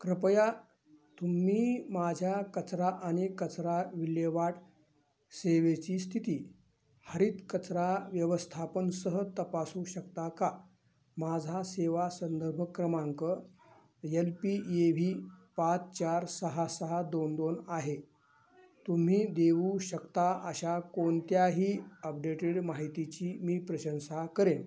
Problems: none marked